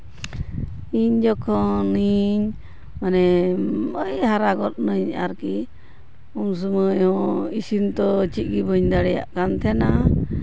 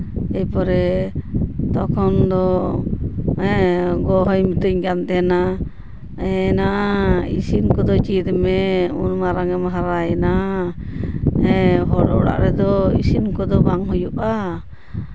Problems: background sounds at intervals